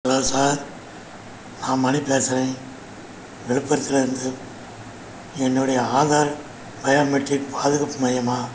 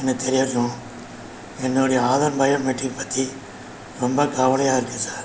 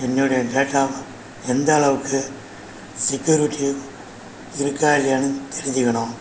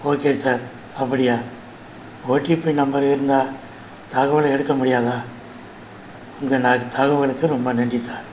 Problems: constant background noise